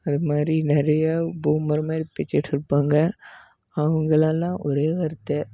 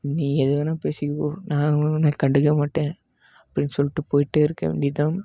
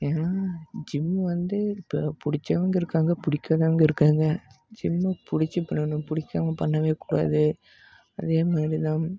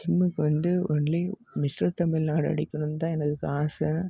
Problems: none marked